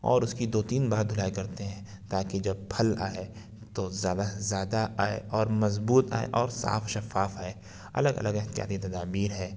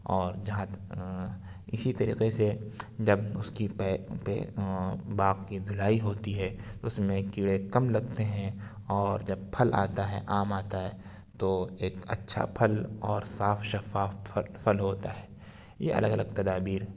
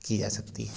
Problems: none marked